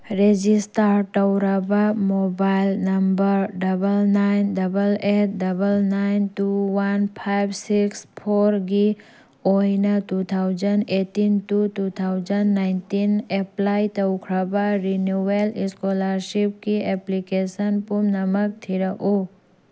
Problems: background sounds at intervals